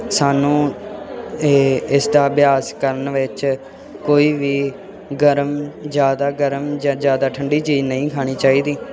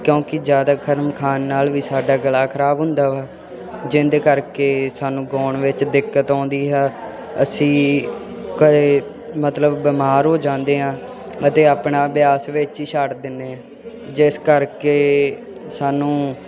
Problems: constant background noise